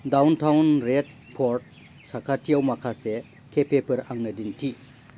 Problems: constant background noise